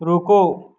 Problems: none marked